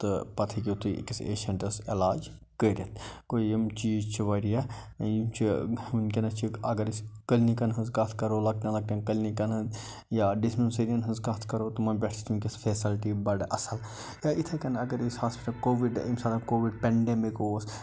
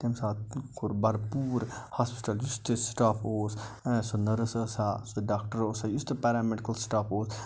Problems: none marked